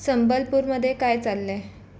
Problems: constant background noise